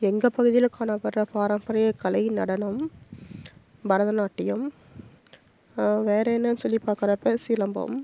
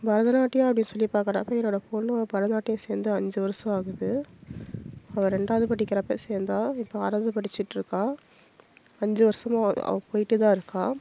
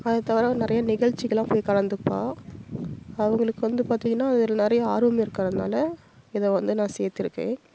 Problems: constant background noise